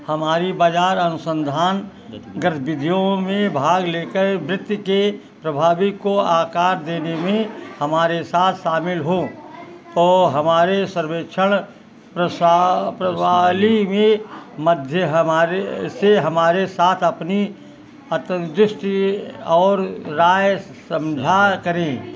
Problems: constant background noise